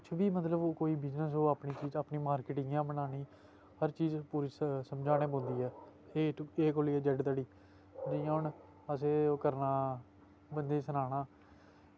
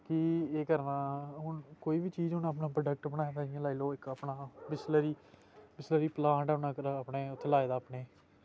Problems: background sounds at intervals